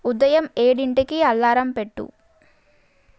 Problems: none marked